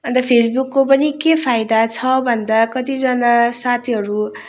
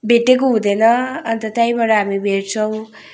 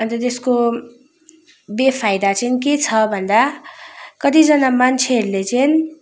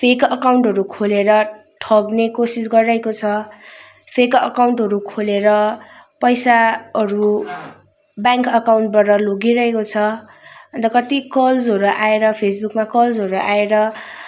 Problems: constant background noise